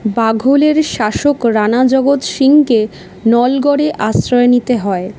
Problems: constant background noise